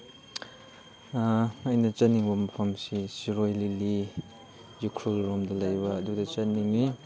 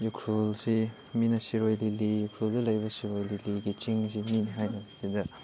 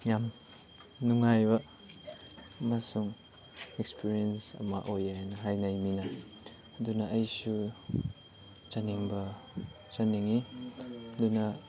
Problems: background sounds at intervals